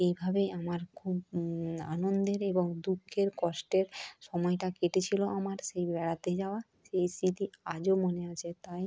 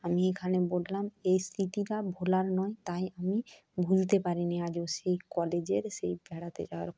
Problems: none marked